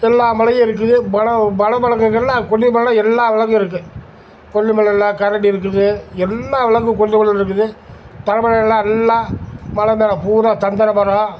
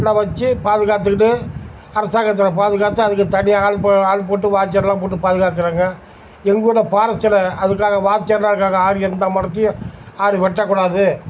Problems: constant background noise